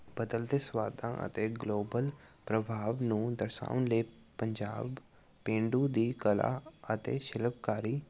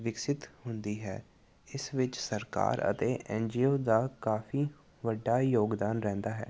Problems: background sounds at intervals